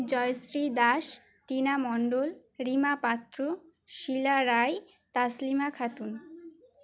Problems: background sounds at intervals